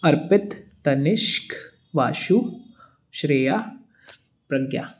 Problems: none marked